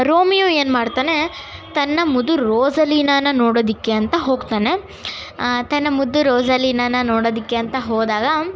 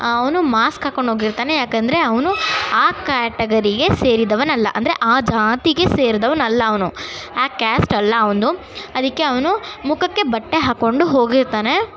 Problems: constant background noise, continuous background conversations